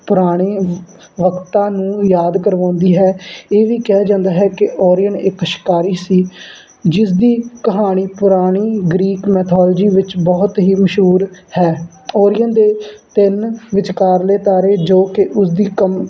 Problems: background sounds at intervals